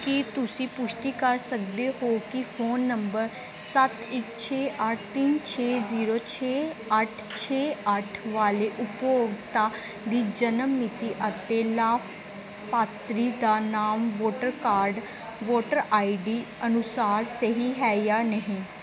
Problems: background conversations at intervals